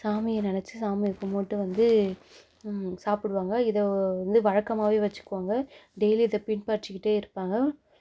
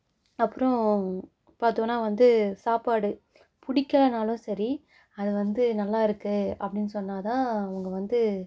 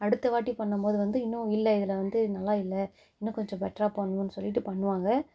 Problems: none marked